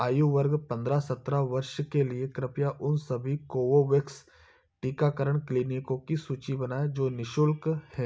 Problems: background sounds at intervals